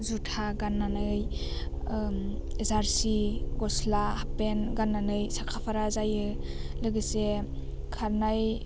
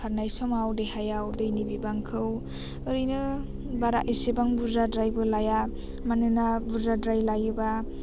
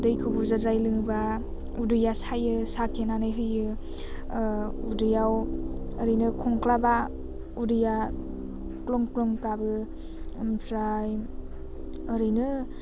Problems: constant background noise